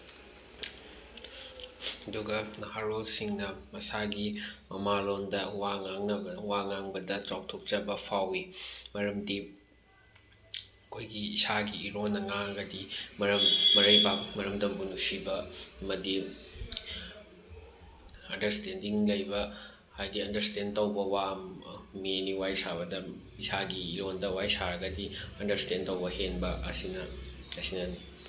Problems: constant background noise